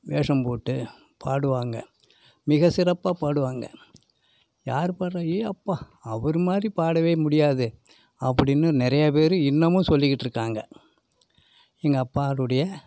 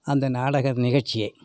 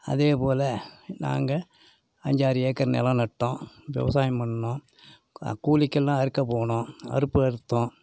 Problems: none marked